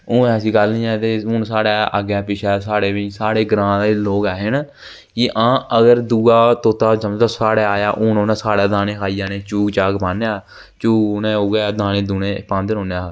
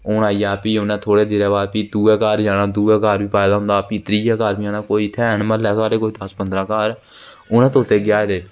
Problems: constant background noise